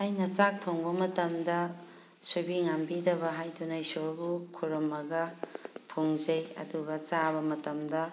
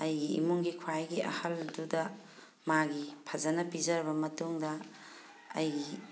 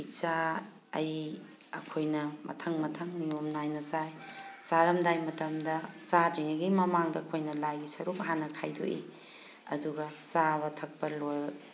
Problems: background sounds at intervals